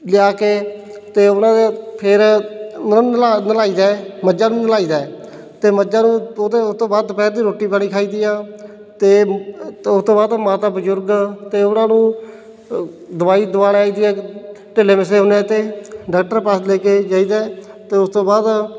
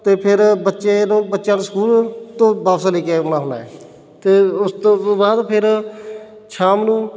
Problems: background sounds at intervals